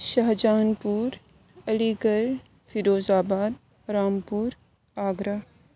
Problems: constant background noise